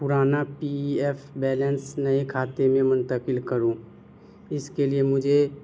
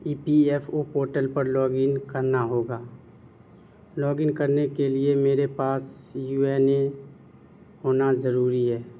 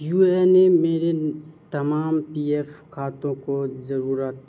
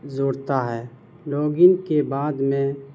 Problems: constant background noise